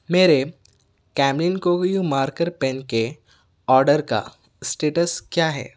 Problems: none marked